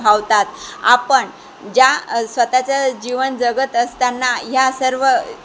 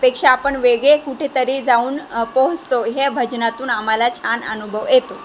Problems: constant background noise, background conversations at intervals